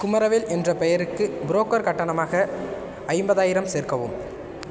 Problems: constant background noise